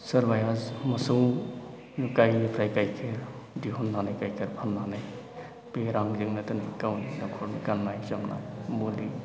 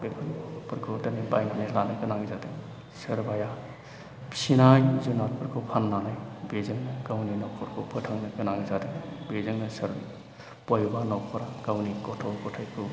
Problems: constant background noise